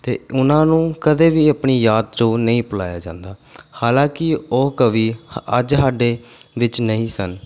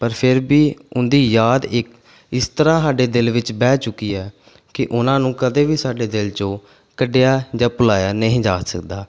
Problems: background sounds at intervals